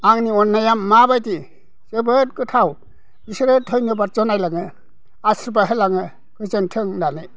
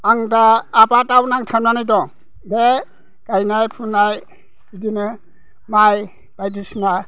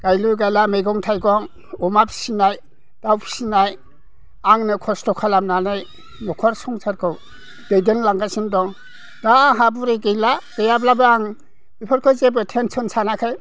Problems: none marked